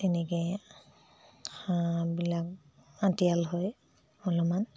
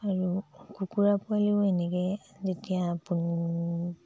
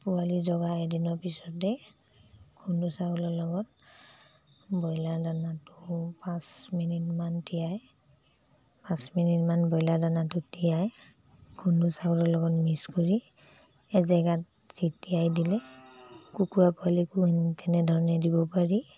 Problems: low volume